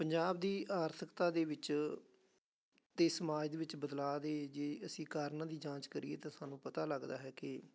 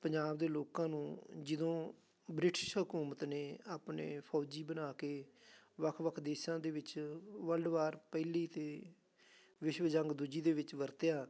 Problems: none marked